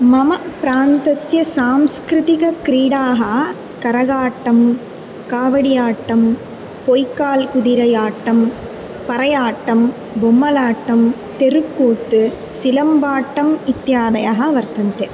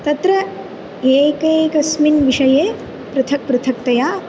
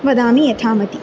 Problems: constant background noise